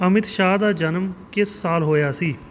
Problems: background sounds at intervals